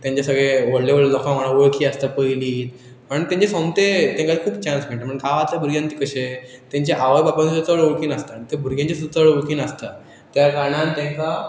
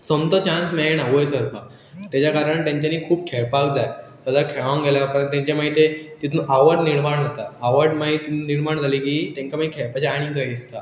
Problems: continuous background conversations